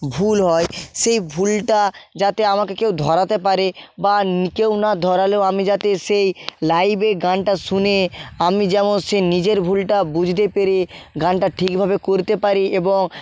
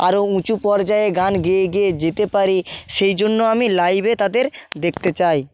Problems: background sounds at intervals